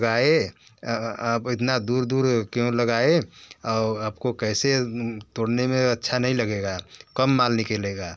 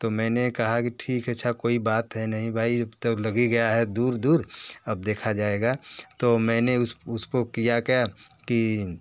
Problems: background conversations at intervals